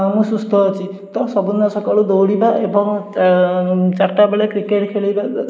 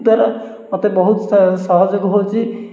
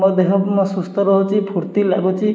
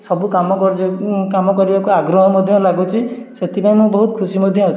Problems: none marked